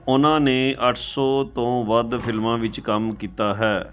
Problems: background sounds at intervals, continuous background conversations